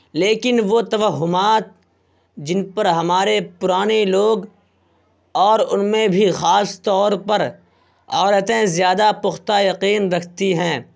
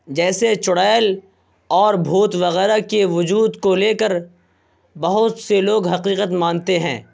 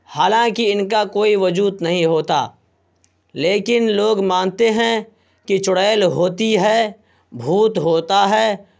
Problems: constant background noise